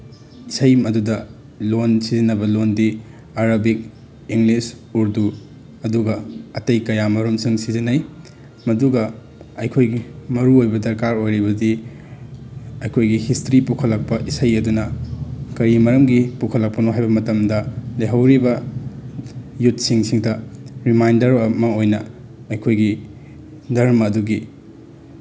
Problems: background sounds at intervals